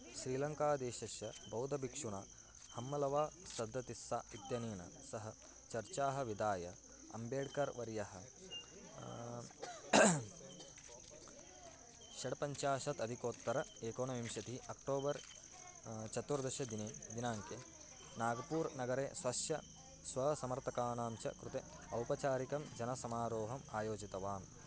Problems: background sounds at intervals